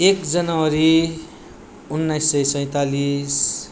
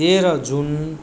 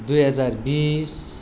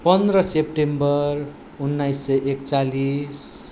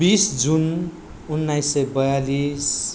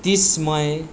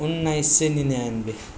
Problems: background sounds at intervals